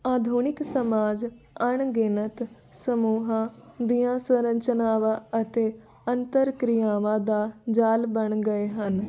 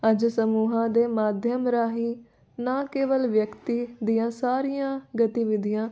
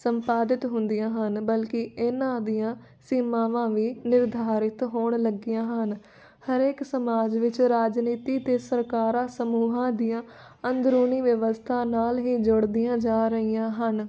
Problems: none marked